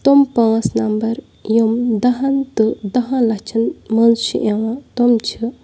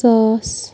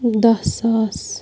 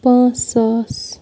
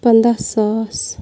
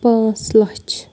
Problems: constant background noise